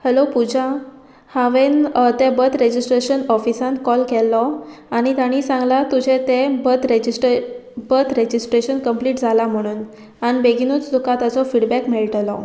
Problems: none marked